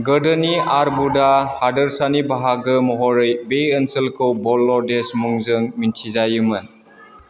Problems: none marked